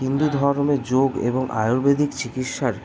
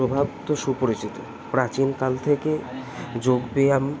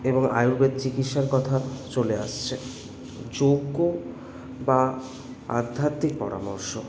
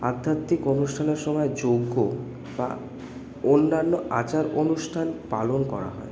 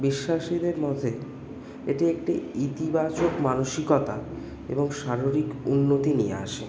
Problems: constant background noise